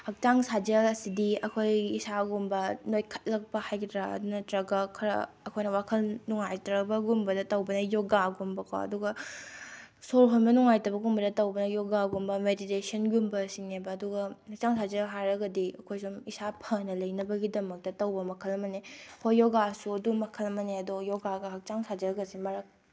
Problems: background sounds at intervals